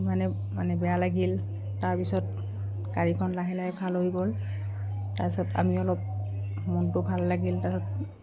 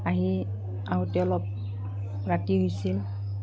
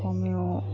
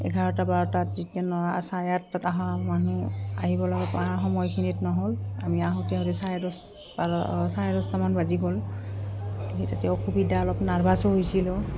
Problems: background sounds at intervals